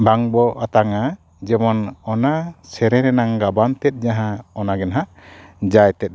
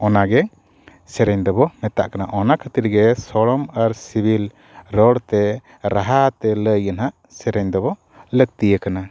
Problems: none marked